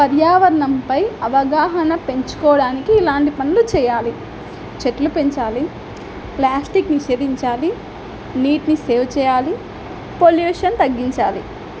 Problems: constant background noise